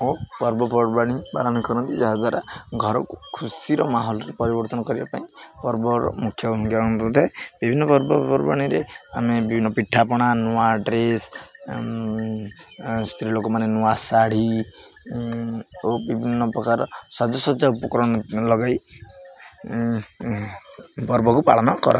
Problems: none marked